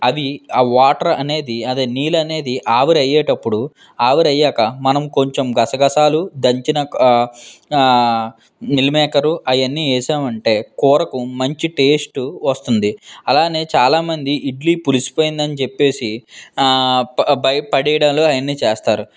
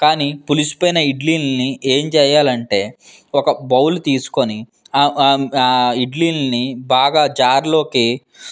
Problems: none marked